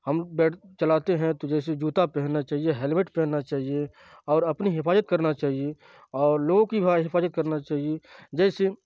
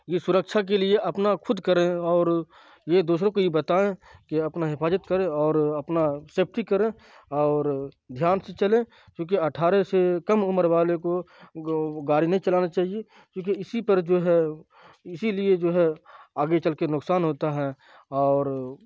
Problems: constant background noise